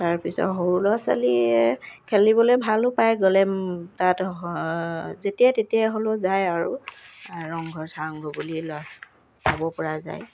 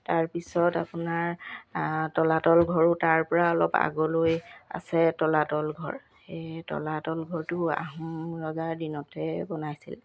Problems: none marked